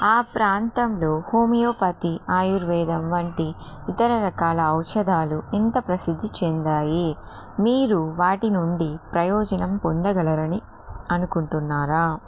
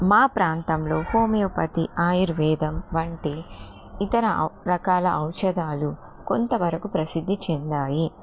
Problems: constant background noise